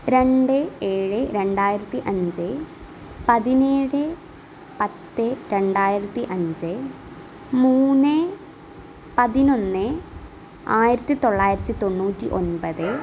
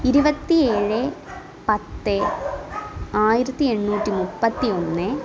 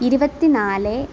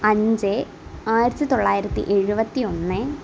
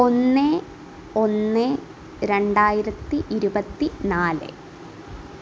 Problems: background sounds at intervals